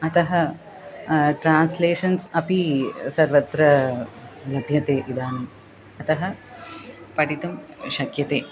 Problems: background conversations at intervals